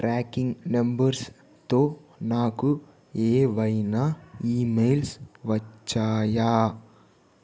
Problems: constant background noise